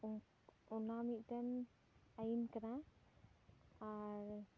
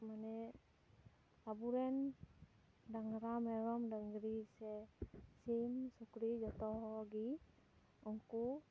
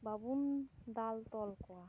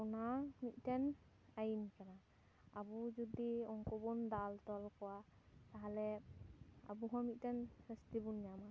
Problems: low volume